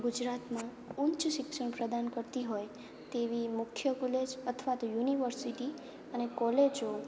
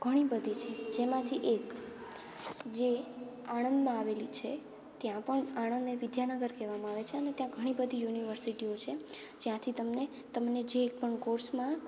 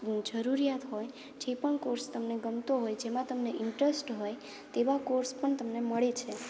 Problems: background sounds at intervals, background conversations at intervals